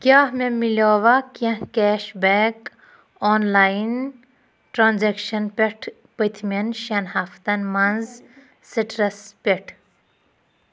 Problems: none marked